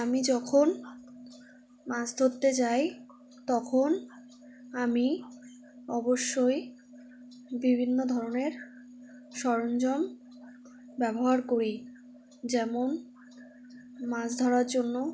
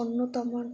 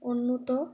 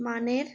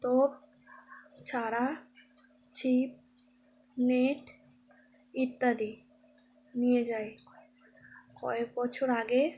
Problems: constant background noise